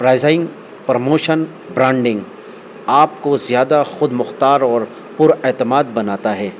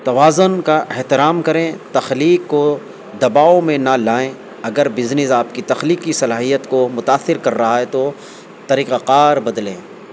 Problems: constant background noise